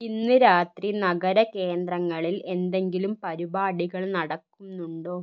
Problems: low volume